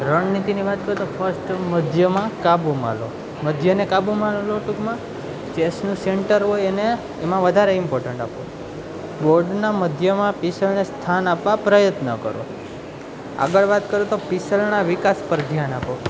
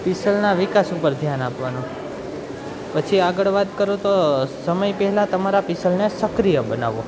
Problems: none marked